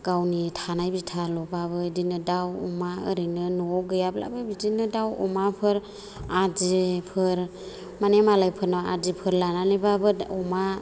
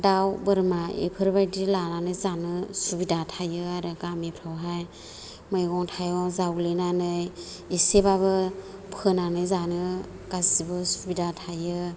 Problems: low volume